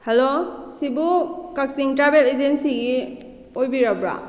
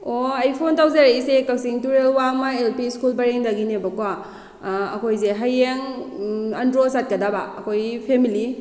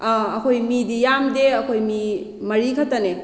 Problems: background conversations at intervals